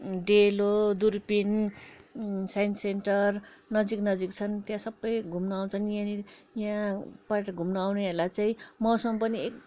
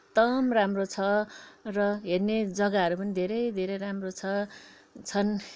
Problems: none marked